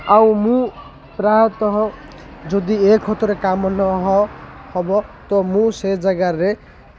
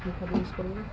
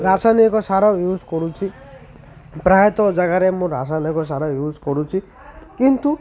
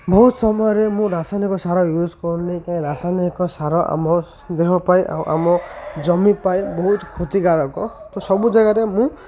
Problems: constant background noise, continuous background conversations